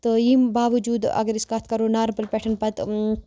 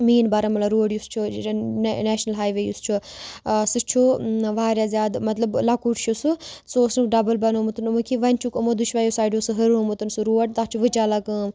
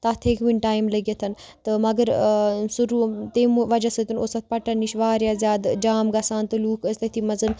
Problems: none marked